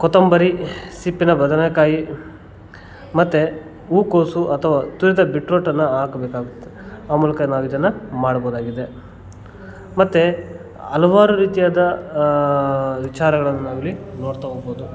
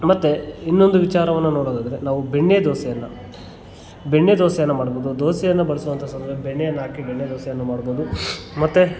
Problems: background sounds at intervals, background conversations at intervals